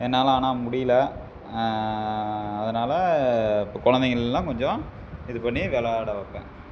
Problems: constant background noise